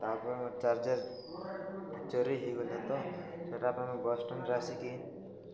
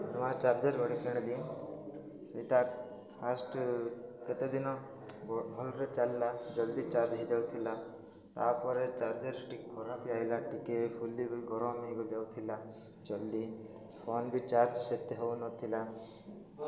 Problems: constant background noise